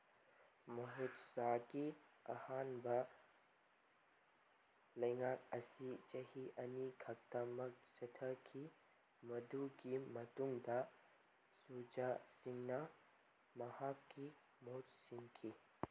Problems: background sounds at intervals